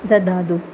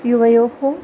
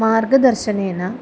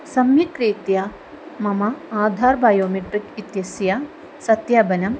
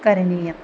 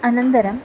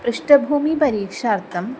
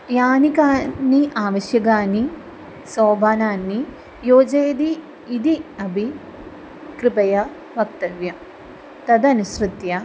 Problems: none marked